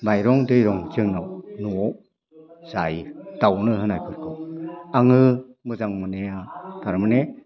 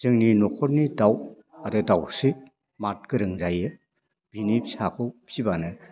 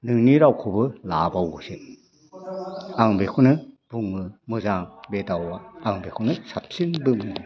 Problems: constant background noise